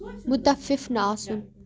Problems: background conversations at intervals